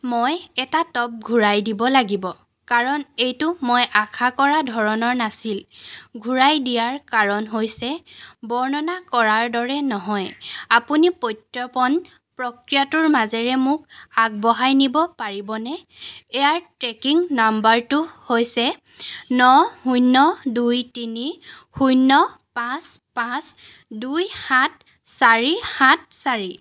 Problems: background sounds at intervals